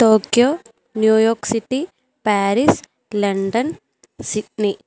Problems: none marked